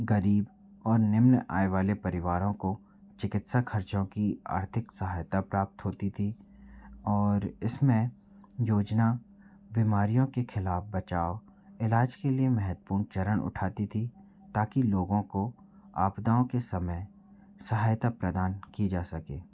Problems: low volume